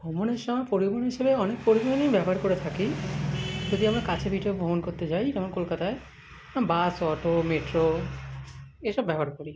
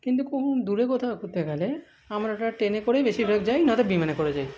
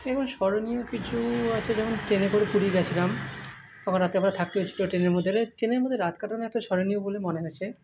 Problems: constant background noise